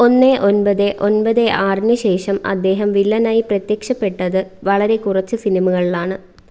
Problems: none marked